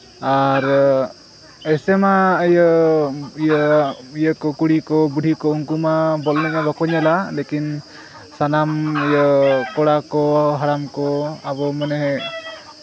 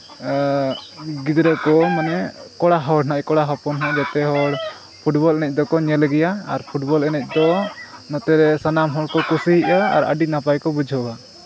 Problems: constant background noise, continuous background conversations